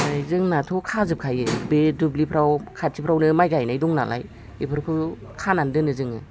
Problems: none marked